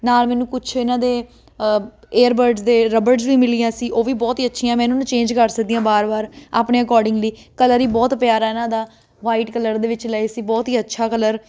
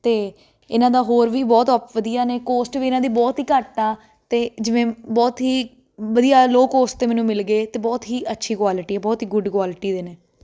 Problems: constant background noise